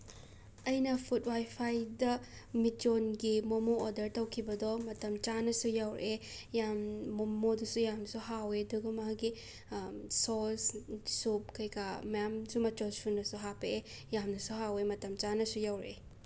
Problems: background sounds at intervals